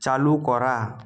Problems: constant background noise